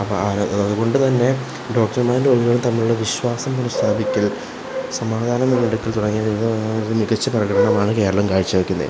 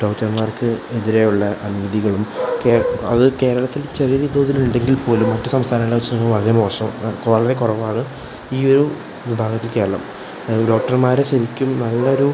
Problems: constant background noise, low volume